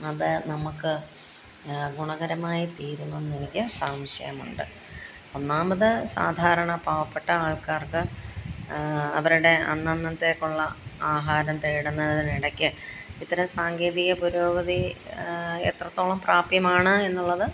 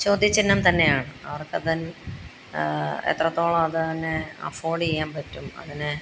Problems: none marked